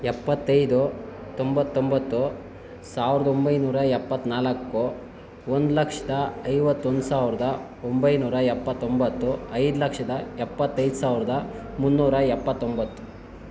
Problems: none marked